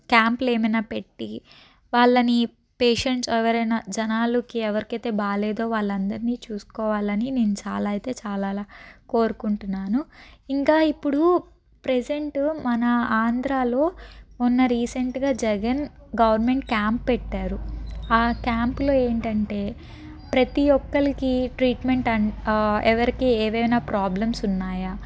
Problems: none marked